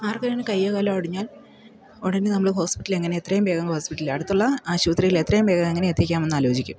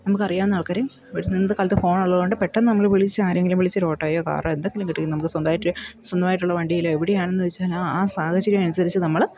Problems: low volume